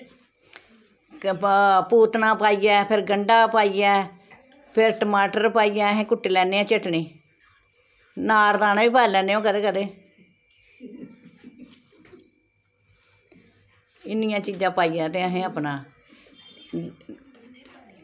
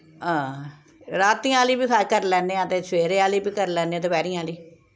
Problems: constant background noise, background conversations at intervals